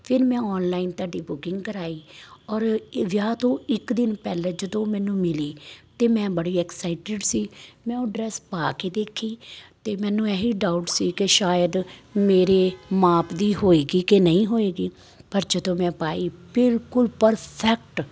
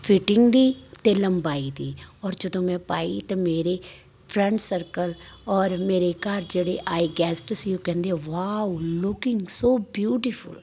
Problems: constant background noise